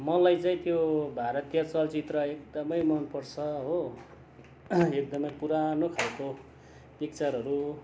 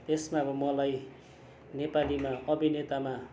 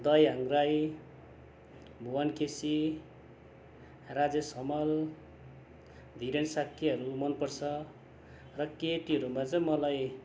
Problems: constant background noise